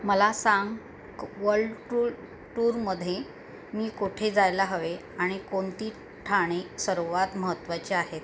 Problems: constant background noise